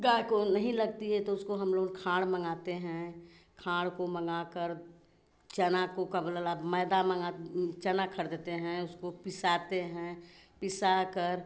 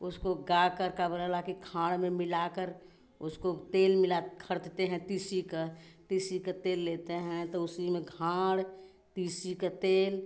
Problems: none marked